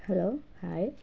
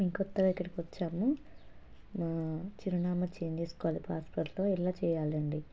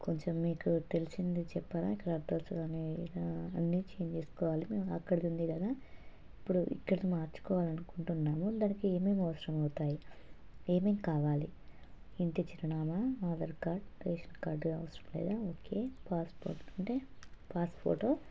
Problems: constant background noise, low volume